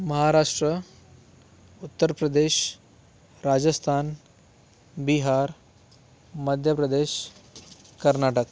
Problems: background sounds at intervals